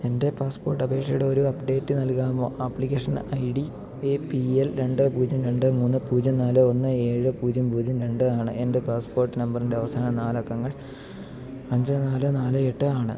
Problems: low volume